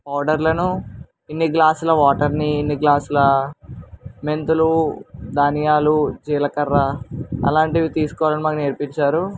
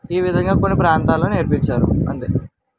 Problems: none marked